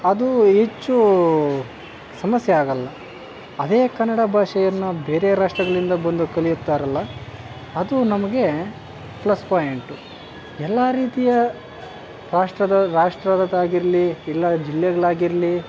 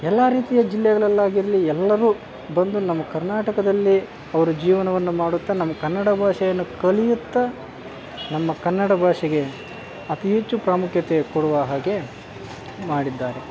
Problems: constant background noise